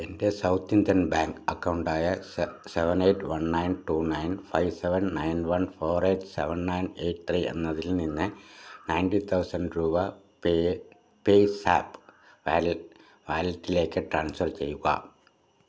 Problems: none marked